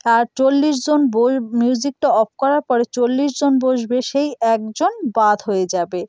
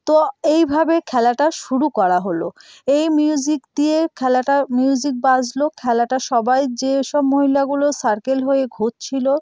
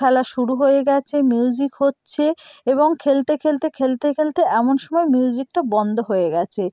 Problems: none marked